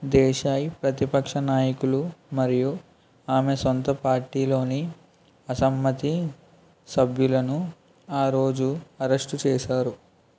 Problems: background sounds at intervals